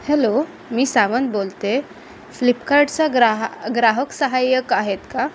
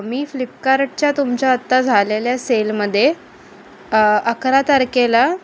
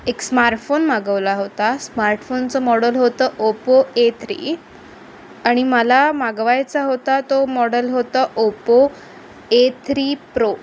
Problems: none marked